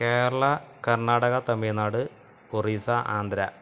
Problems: constant background noise